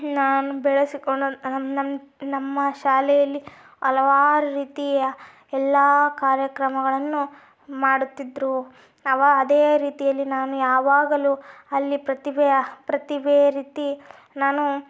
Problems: none marked